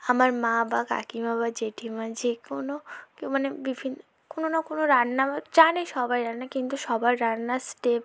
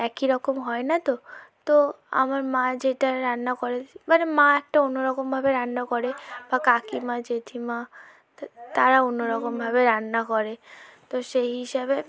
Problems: low volume